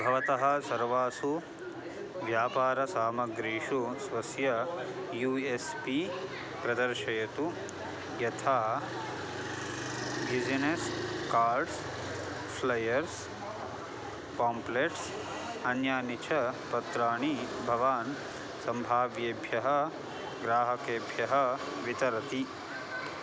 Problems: constant background noise